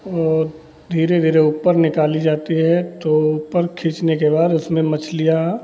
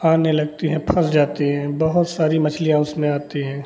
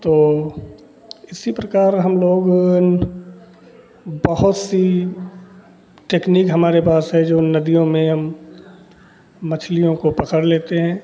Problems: constant background noise, background conversations at intervals